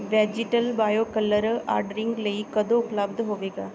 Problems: none marked